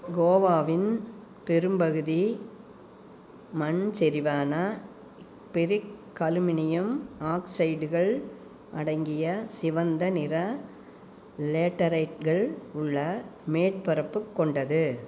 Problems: background sounds at intervals